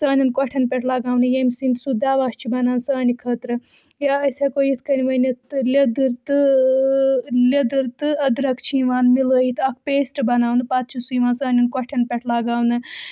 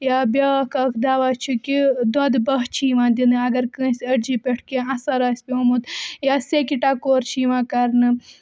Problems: constant background noise